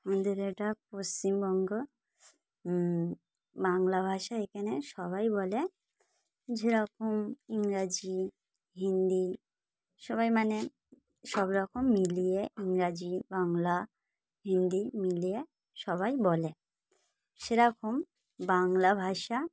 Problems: none marked